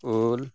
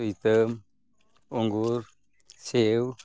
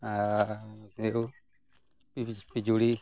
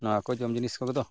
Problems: background sounds at intervals